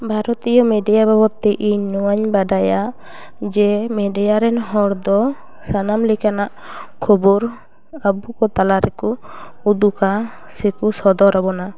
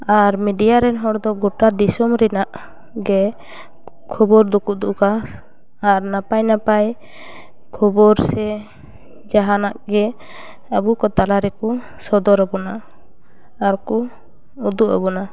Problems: none marked